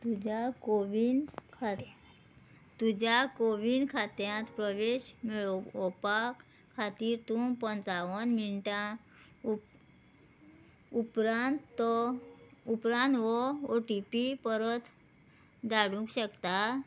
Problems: background sounds at intervals